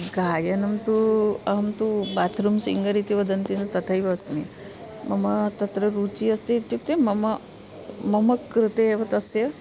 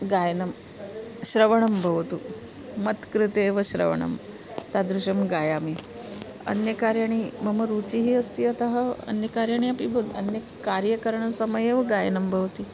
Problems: background sounds at intervals